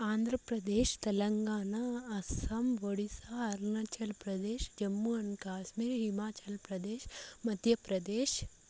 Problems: constant background noise, low volume